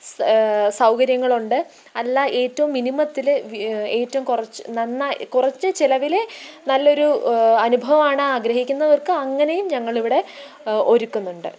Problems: constant background noise, low volume